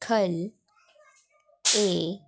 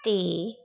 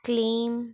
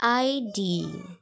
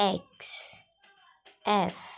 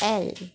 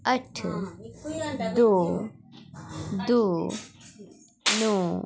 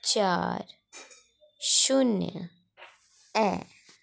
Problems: constant background noise